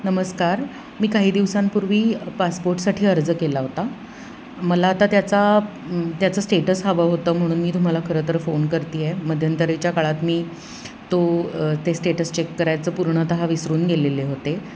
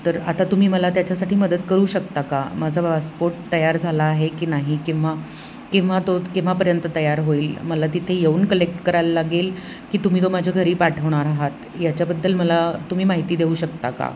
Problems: none marked